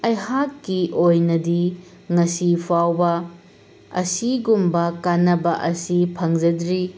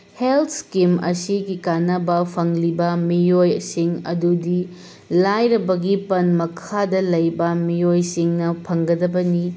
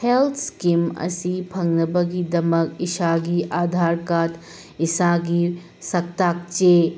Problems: constant background noise